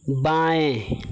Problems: constant background noise